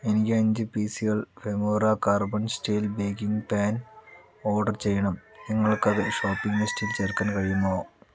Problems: background sounds at intervals